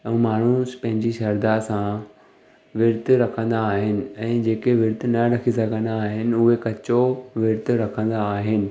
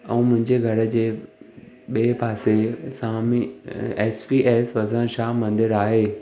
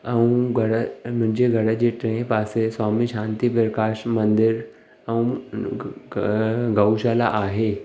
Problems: none marked